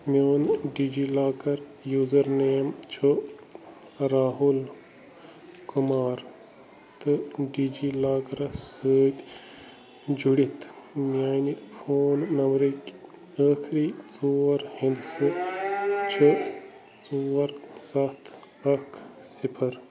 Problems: constant background noise